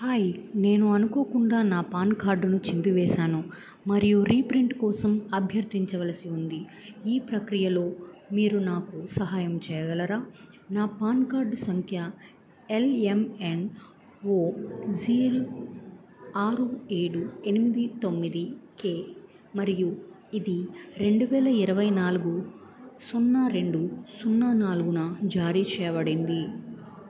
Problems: none marked